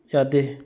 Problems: low volume